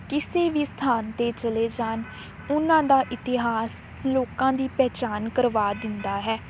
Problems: none marked